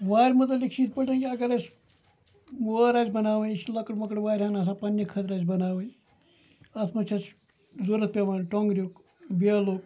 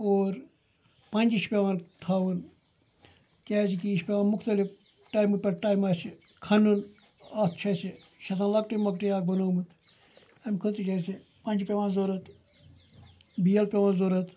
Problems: background sounds at intervals, background conversations at intervals